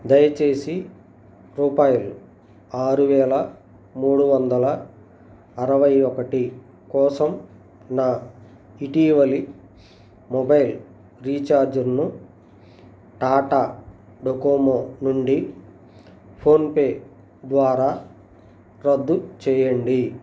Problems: none marked